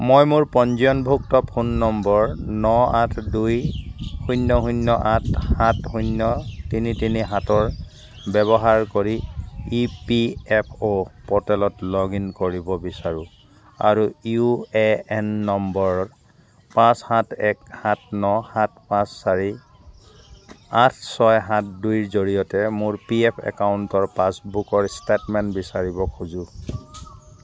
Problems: background sounds at intervals